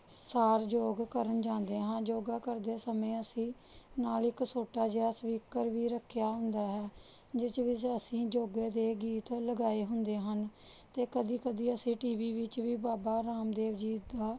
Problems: none marked